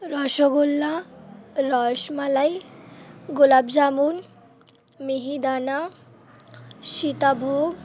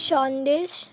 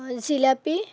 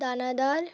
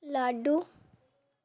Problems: background sounds at intervals